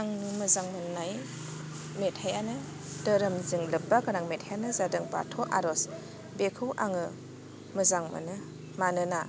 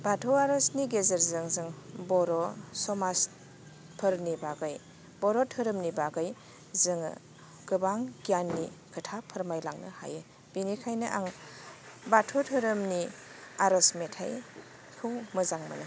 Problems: none marked